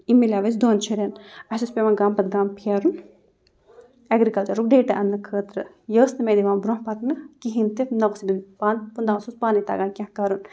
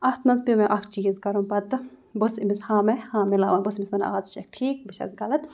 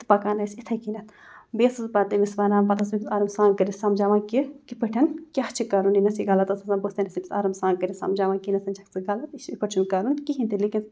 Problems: none marked